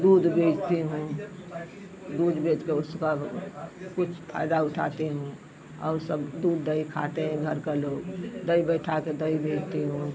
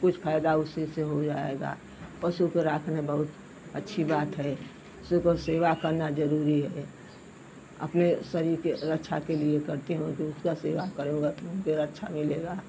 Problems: none marked